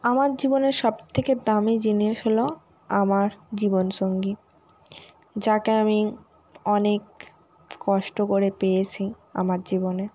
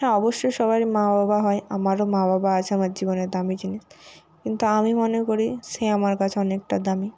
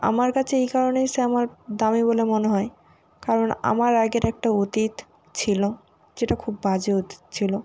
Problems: background sounds at intervals